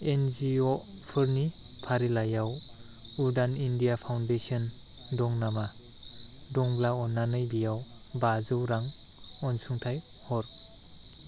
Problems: none marked